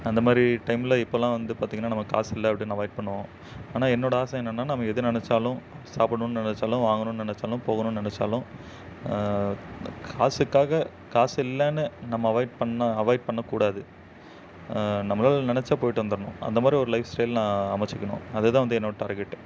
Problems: none marked